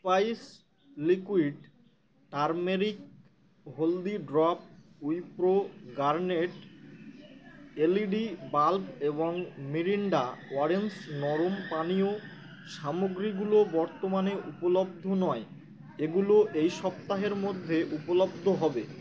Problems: constant background noise